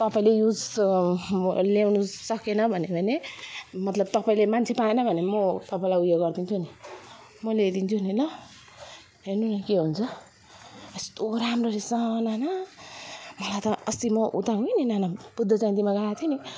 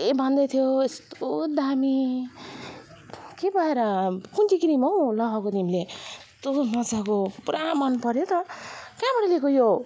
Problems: none marked